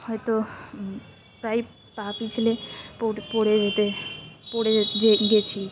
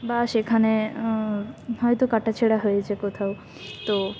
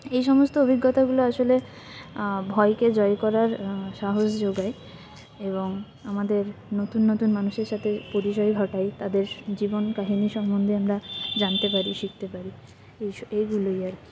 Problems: constant background noise, continuous background conversations